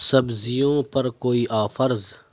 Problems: none marked